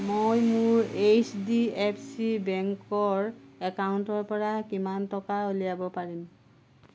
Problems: background sounds at intervals